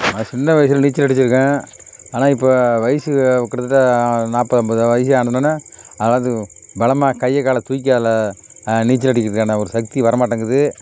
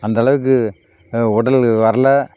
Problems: background sounds at intervals